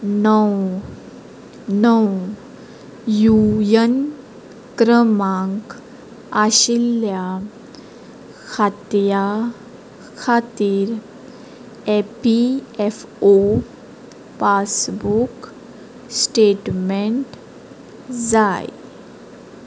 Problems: background sounds at intervals